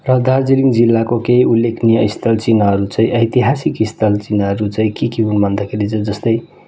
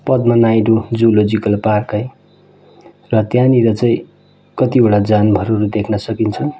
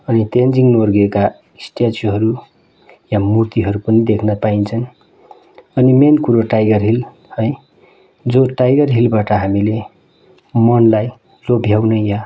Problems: constant background noise